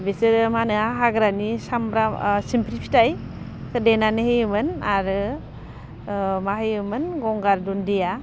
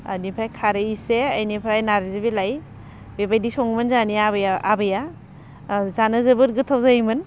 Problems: constant background noise